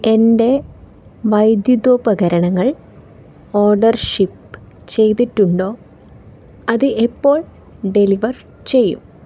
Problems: background sounds at intervals